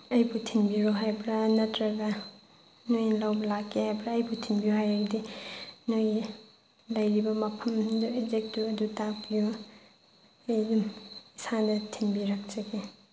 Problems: background sounds at intervals